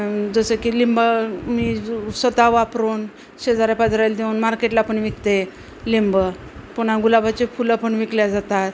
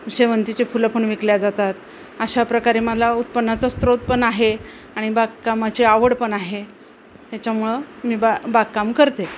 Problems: none marked